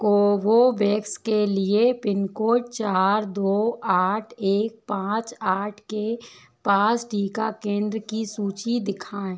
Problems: none marked